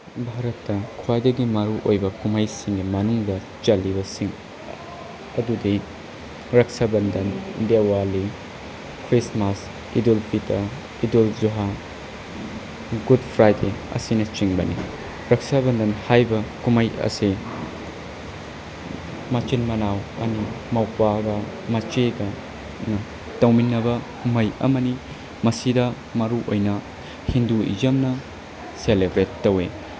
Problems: constant background noise